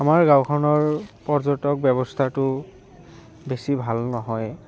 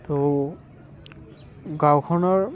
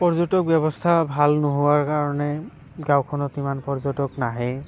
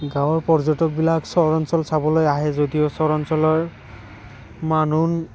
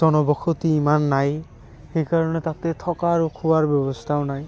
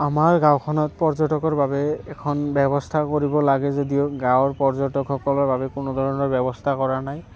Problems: constant background noise